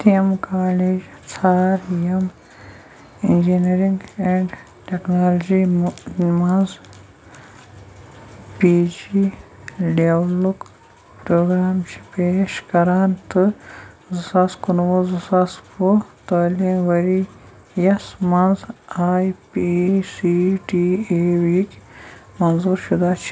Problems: constant background noise